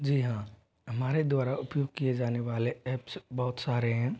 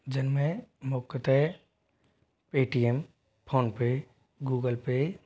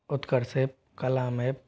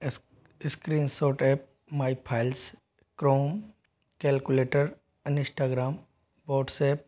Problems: background sounds at intervals